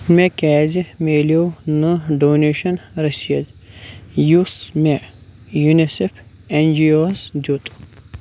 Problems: constant background noise